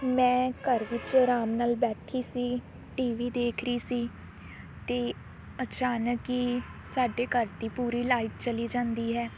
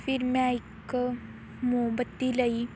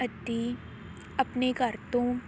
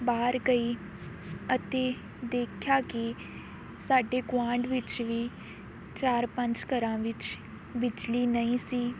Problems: constant background noise